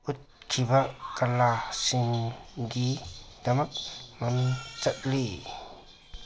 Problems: background sounds at intervals